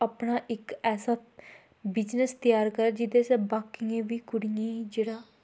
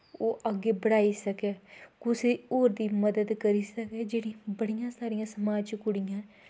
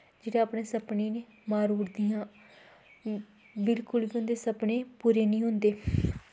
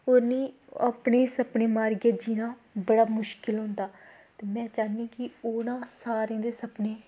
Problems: low volume